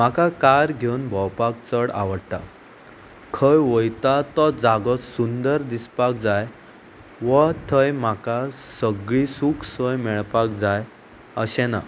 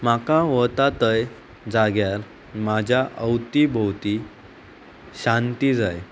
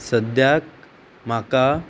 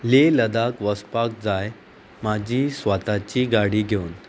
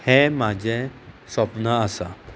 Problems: constant background noise